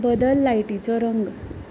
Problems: constant background noise